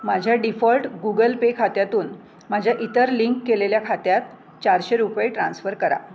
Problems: none marked